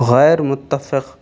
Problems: constant background noise